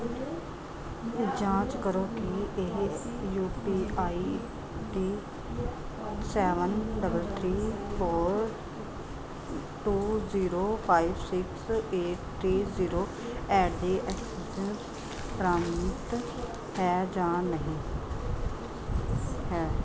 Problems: continuous background conversations